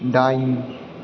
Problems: constant background noise